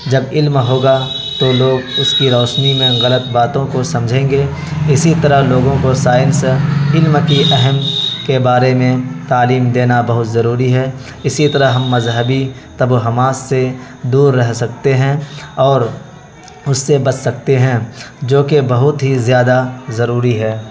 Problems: constant background noise